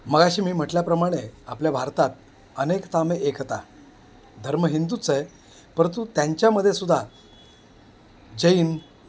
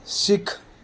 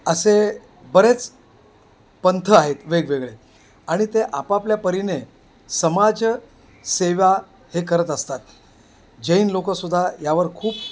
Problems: constant background noise